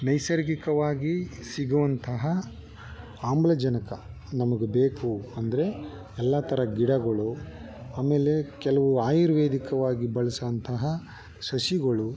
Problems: background conversations at intervals